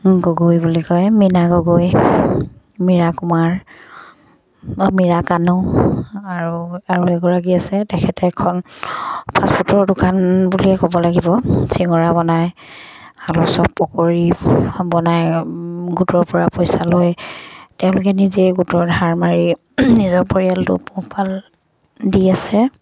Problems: none marked